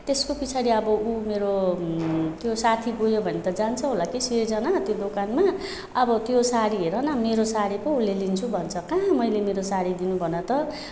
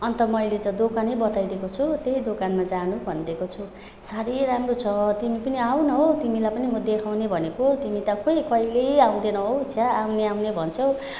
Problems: constant background noise